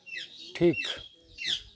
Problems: background sounds at intervals